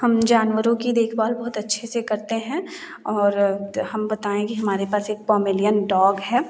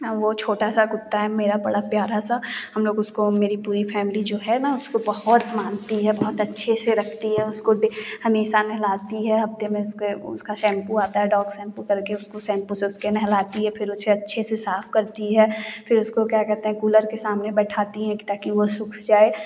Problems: none marked